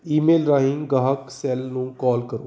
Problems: background sounds at intervals